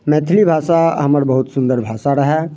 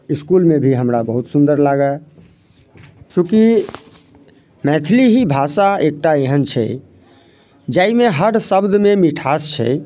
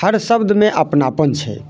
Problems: none marked